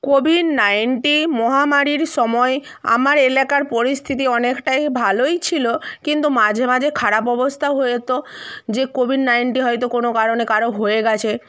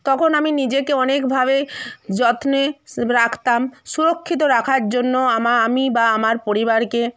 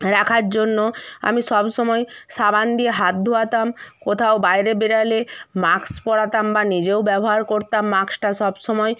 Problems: none marked